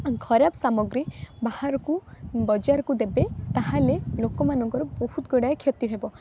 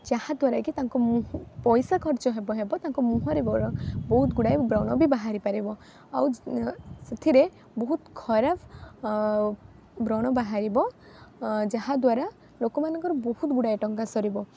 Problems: constant background noise